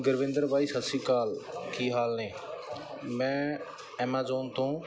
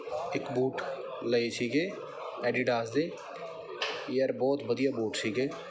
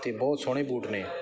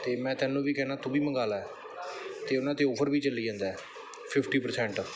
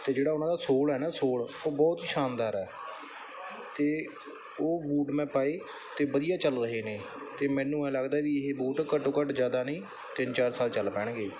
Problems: none marked